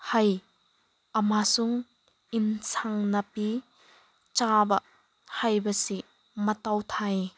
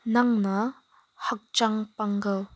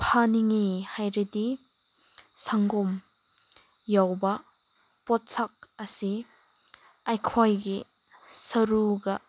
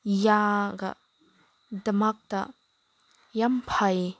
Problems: background sounds at intervals